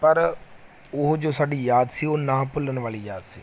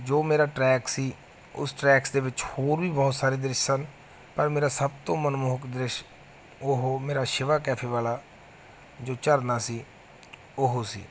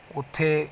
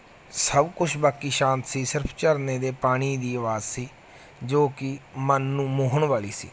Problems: none marked